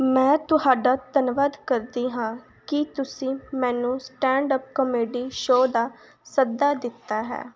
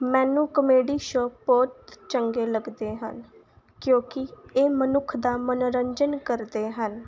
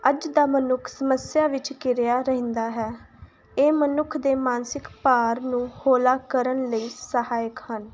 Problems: constant background noise